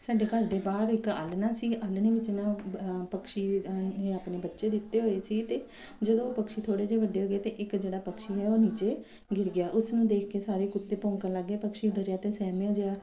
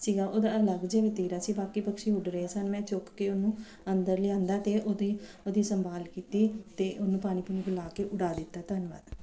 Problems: background sounds at intervals